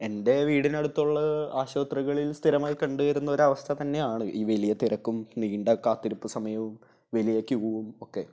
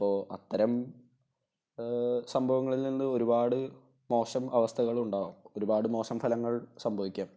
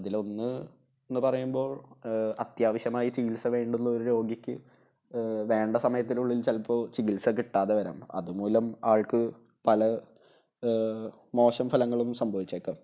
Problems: none marked